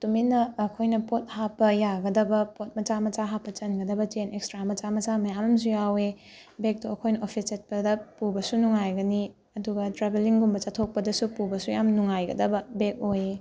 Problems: none marked